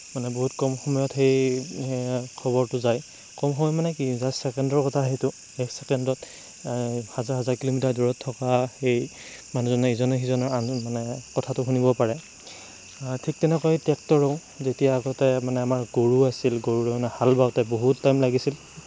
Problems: constant background noise